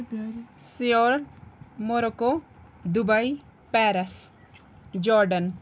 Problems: background sounds at intervals, background conversations at intervals